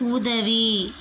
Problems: constant background noise